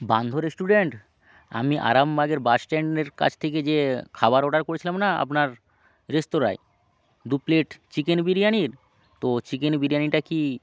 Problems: background sounds at intervals